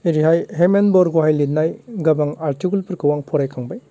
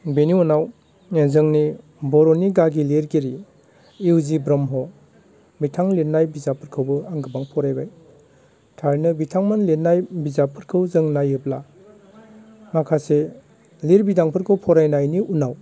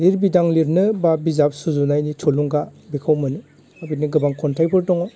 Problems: constant background noise